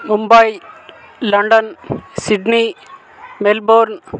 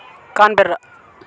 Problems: continuous background conversations